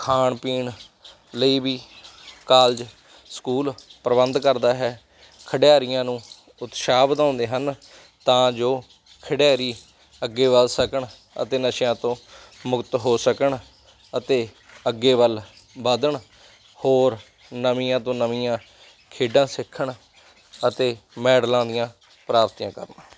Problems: none marked